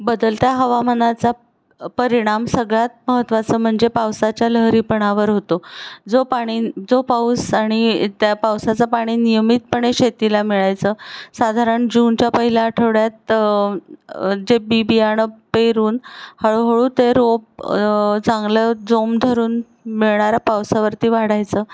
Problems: none marked